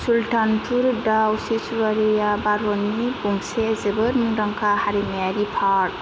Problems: constant background noise